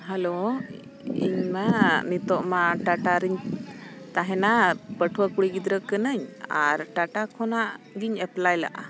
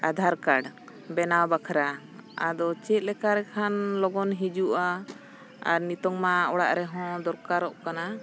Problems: constant background noise